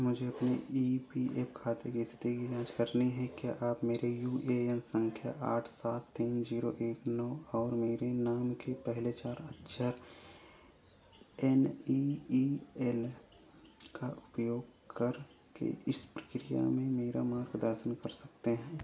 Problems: constant background noise